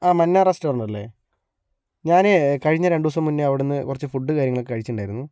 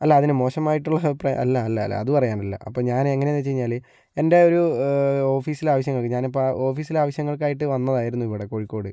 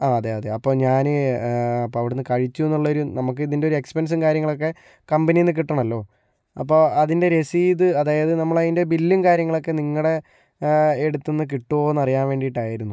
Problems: low volume